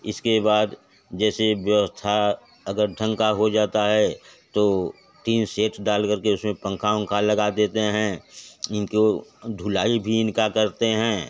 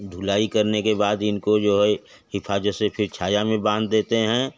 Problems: none marked